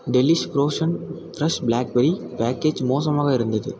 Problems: constant background noise